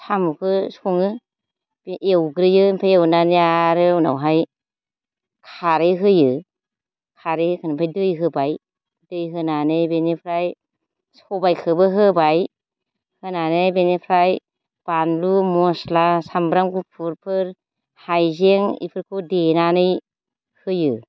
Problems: low volume